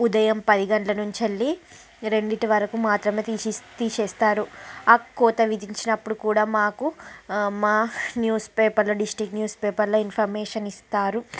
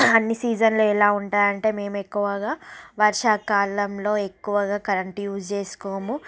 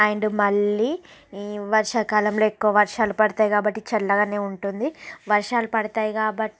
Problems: background sounds at intervals, background conversations at intervals